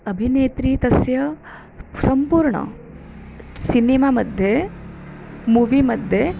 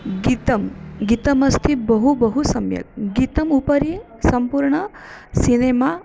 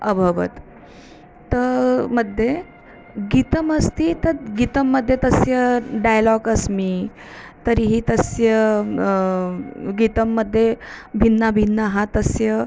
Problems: none marked